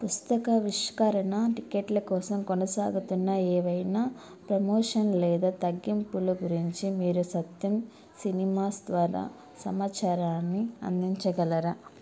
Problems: none marked